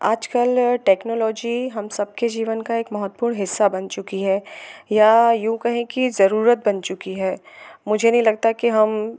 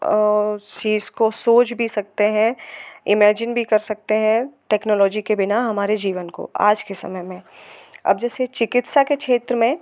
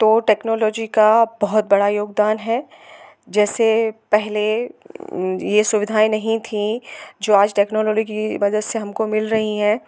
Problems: constant background noise